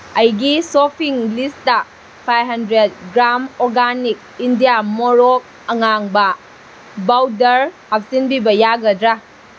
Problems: constant background noise